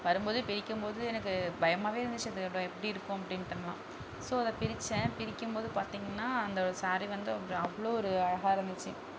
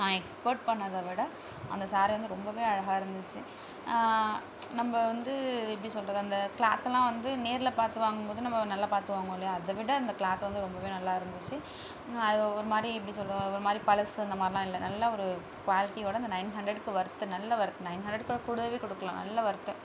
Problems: none marked